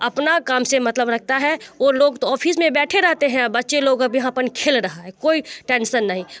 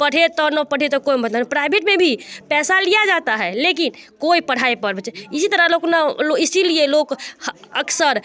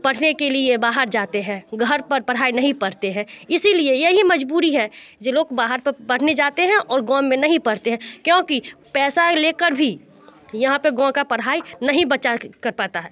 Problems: constant background noise, continuous background conversations